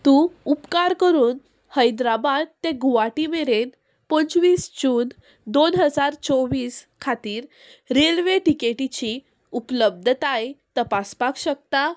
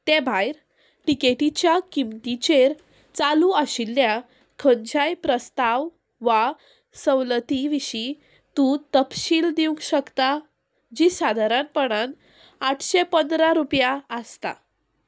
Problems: none marked